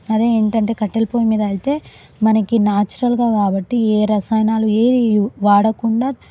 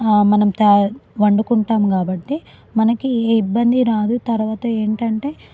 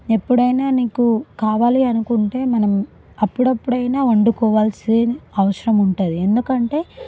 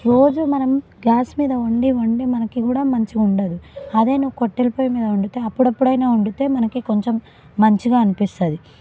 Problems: background conversations at intervals